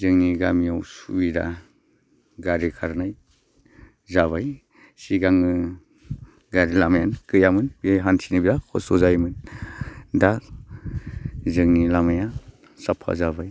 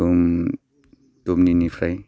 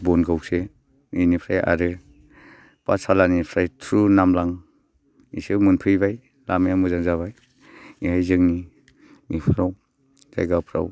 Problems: constant background noise